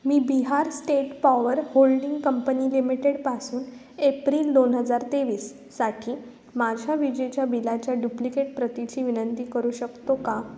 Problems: constant background noise